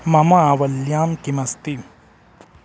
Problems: constant background noise